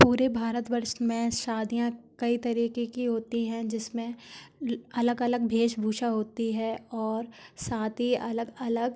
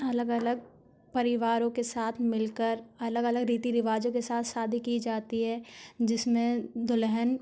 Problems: constant background noise